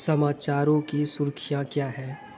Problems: constant background noise